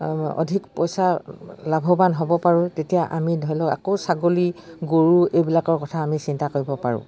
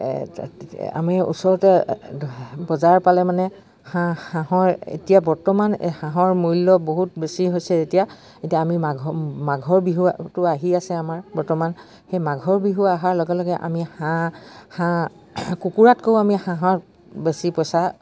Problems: background sounds at intervals